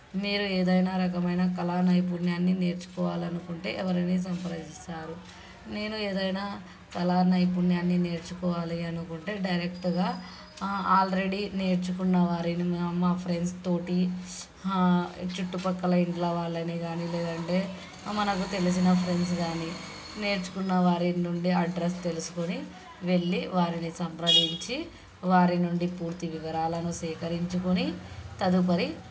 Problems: background sounds at intervals, background conversations at intervals